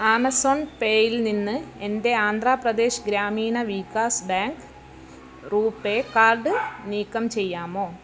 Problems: background sounds at intervals